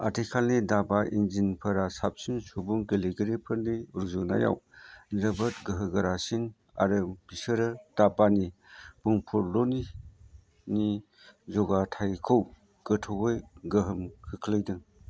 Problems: none marked